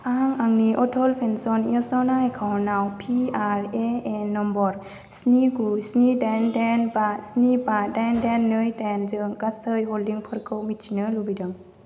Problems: constant background noise